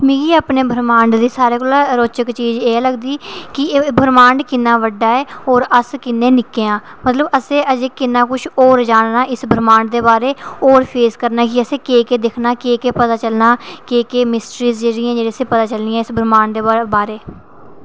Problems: none marked